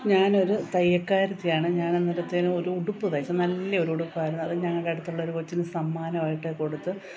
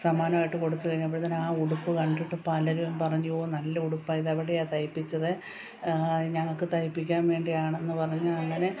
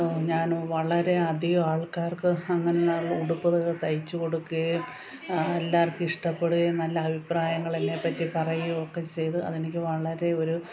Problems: constant background noise